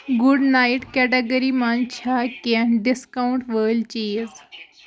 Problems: none marked